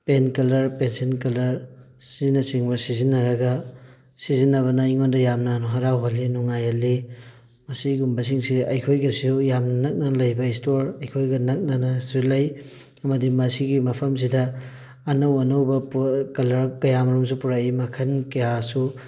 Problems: background sounds at intervals